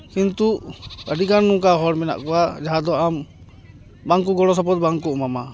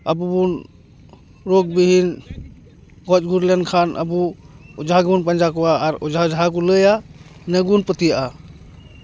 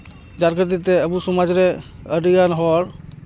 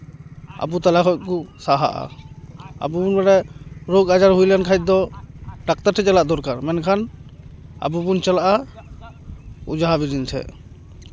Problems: constant background noise, continuous background conversations